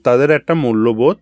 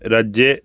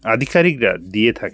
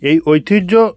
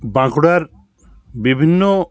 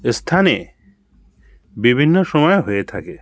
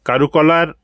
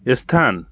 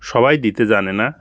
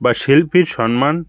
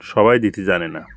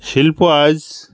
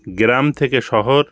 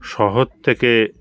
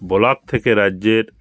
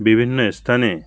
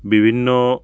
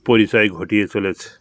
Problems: background sounds at intervals